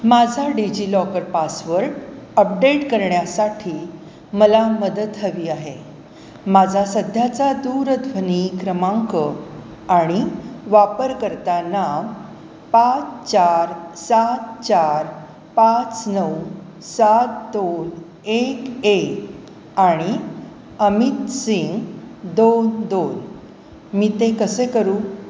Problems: constant background noise